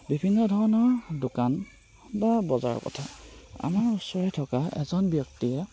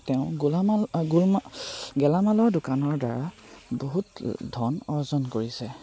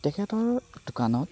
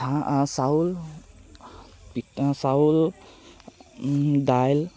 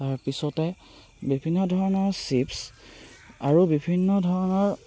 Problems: none marked